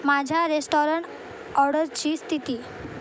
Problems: constant background noise